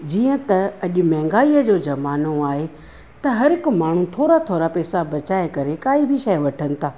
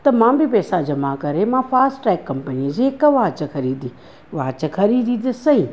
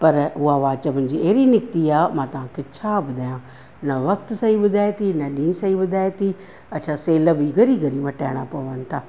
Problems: none marked